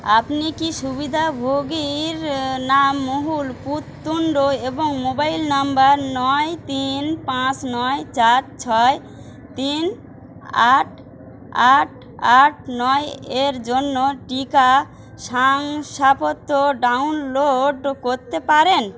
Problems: none marked